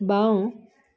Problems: none marked